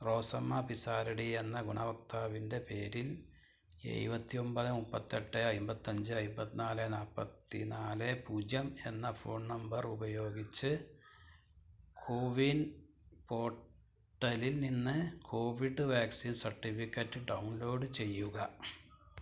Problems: none marked